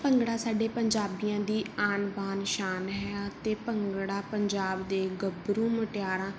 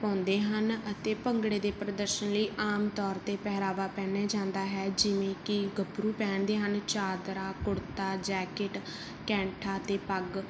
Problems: background sounds at intervals